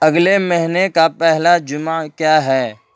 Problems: none marked